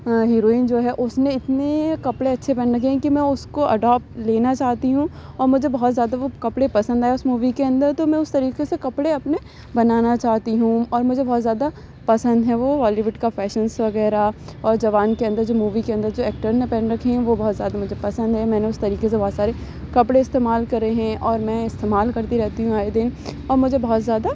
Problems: none marked